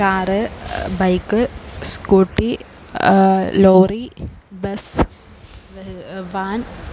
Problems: constant background noise, low volume